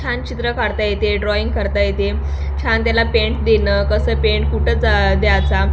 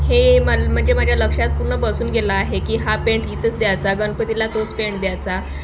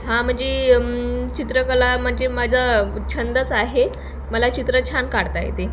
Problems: constant background noise, background conversations at intervals